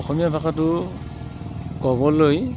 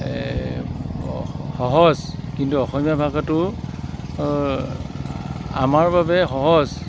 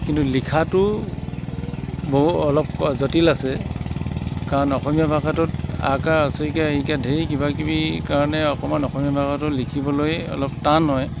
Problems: constant background noise